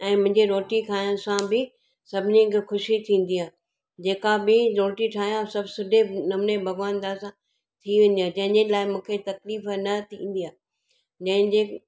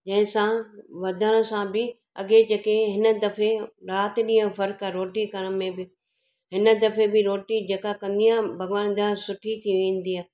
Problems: none marked